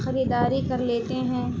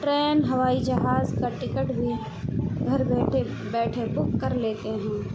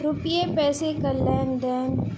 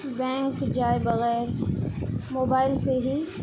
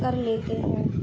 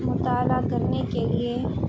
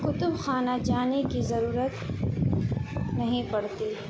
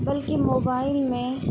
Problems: constant background noise